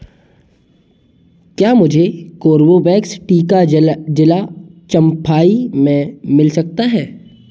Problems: constant background noise, background conversations at intervals